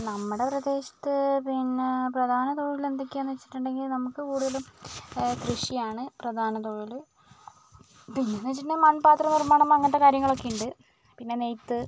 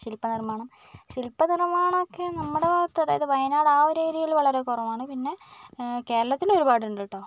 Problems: none marked